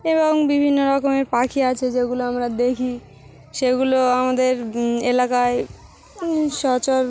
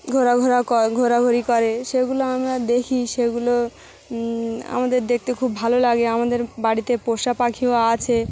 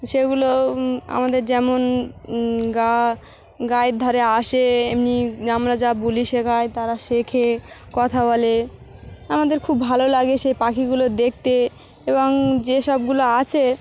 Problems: none marked